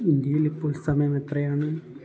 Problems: low volume